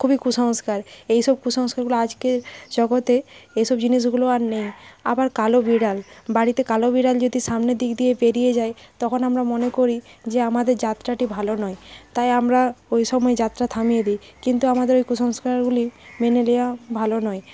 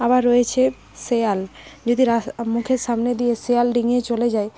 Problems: constant background noise